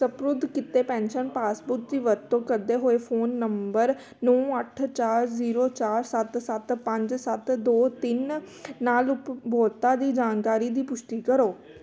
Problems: background conversations at intervals